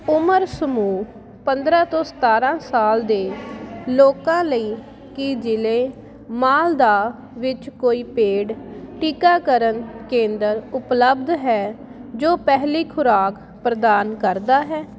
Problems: constant background noise